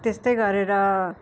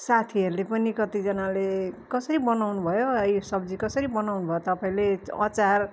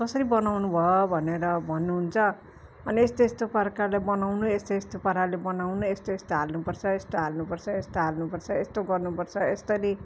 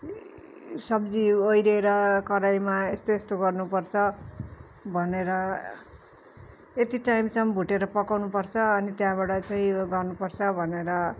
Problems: constant background noise, continuous background conversations